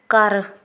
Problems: none marked